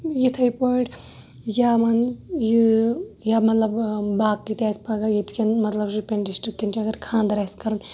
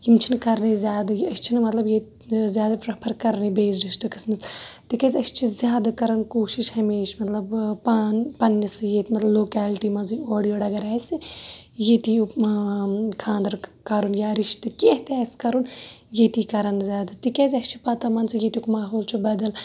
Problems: background sounds at intervals